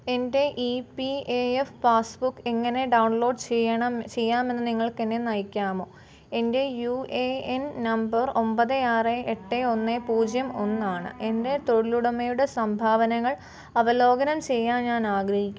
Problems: none marked